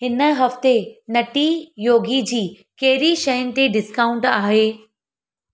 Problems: none marked